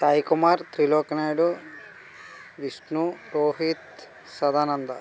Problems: none marked